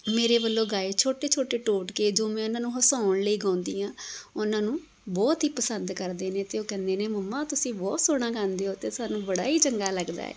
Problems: background sounds at intervals